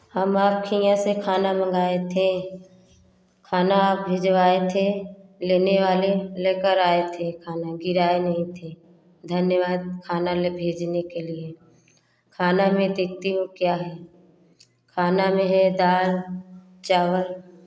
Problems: none marked